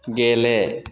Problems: none marked